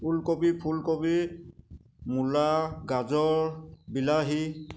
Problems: constant background noise